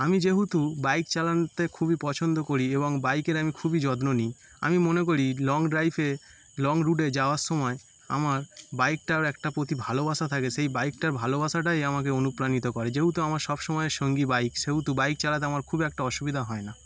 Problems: constant background noise